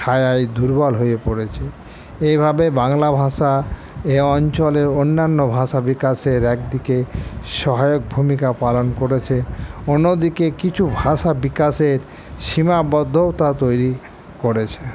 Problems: constant background noise